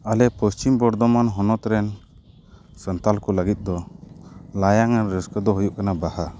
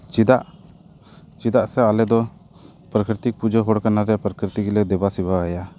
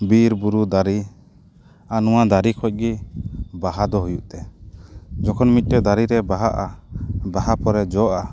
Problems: background sounds at intervals, background conversations at intervals